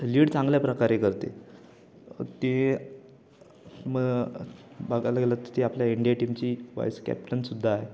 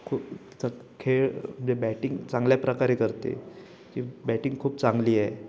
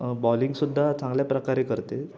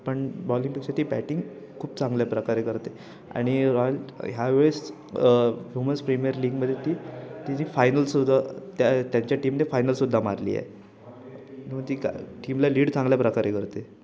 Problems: background sounds at intervals, background conversations at intervals